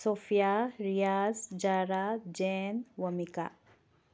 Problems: background sounds at intervals, low volume